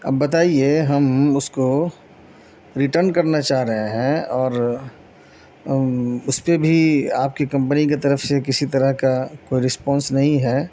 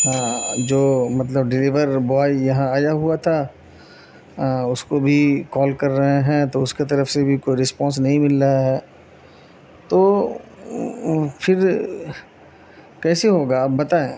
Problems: constant background noise